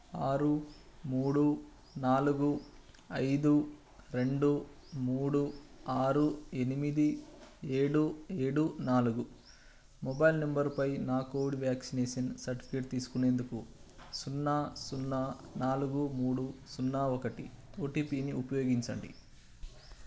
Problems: constant background noise